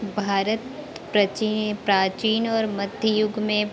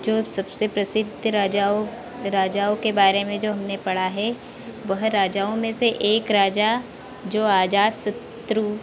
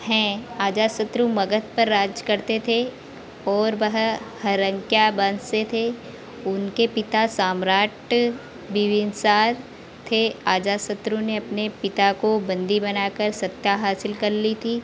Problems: constant background noise